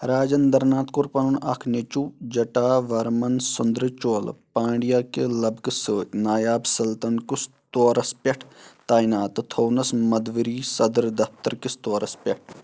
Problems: constant background noise